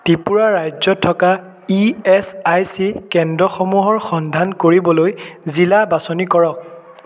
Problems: constant background noise